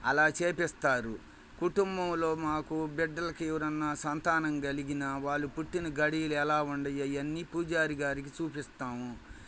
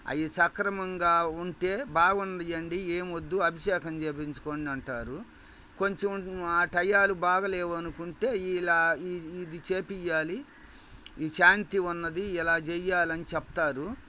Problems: background sounds at intervals